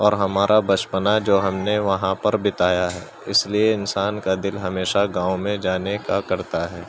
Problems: constant background noise, continuous background conversations